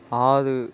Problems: constant background noise